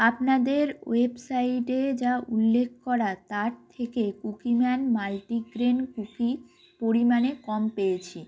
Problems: constant background noise